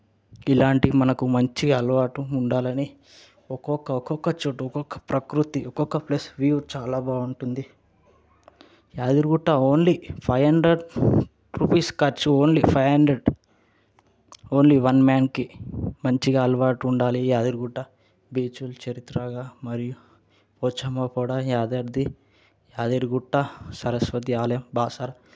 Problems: none marked